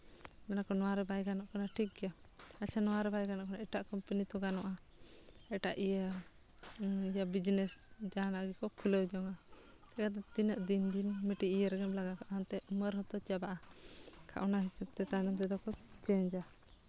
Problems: background sounds at intervals